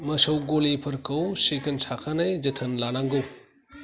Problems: none marked